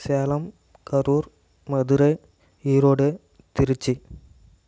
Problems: none marked